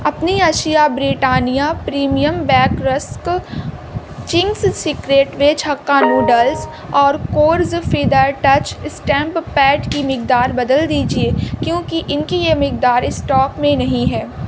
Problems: constant background noise